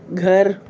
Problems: none marked